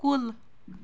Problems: background sounds at intervals